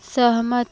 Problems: constant background noise